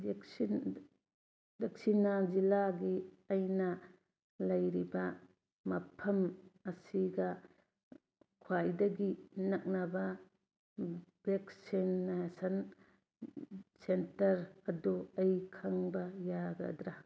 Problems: none marked